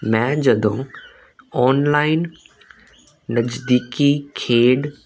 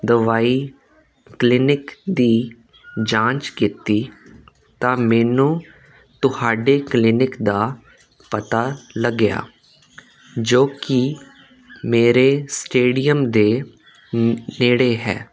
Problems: constant background noise